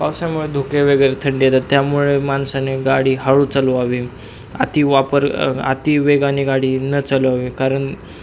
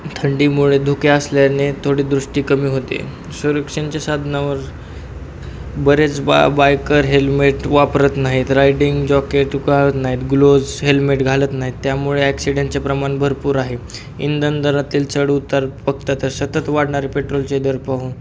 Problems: constant background noise